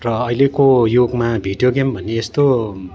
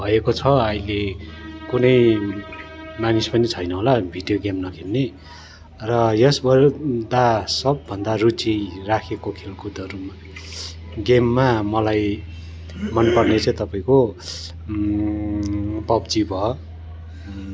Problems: continuous background conversations